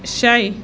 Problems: constant background noise